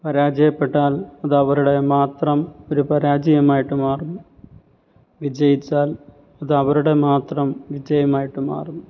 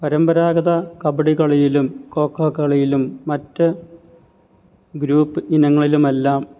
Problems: none marked